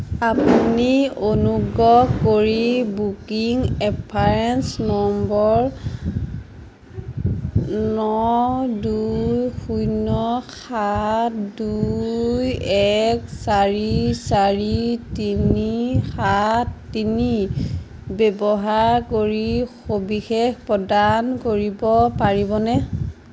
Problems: none marked